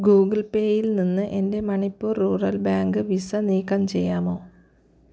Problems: none marked